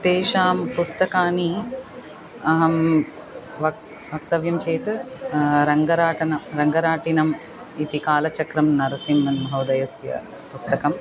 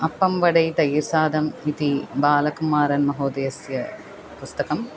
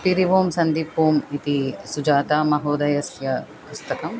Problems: none marked